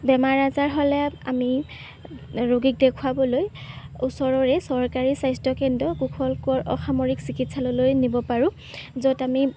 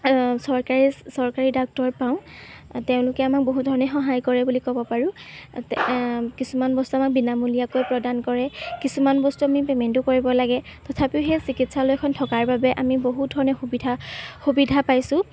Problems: background sounds at intervals